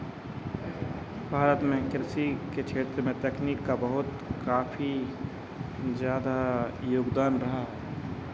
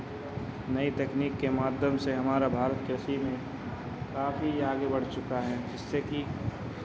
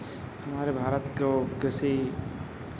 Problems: background sounds at intervals